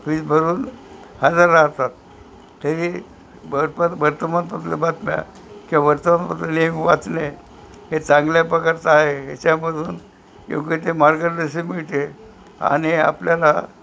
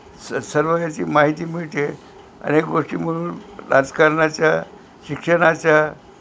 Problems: constant background noise